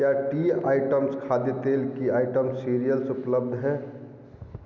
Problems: echo, low volume